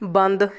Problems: background sounds at intervals